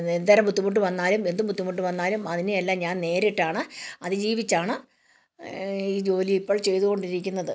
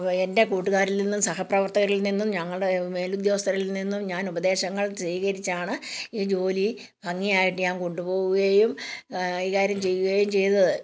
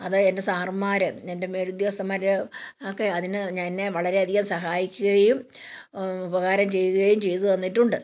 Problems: none marked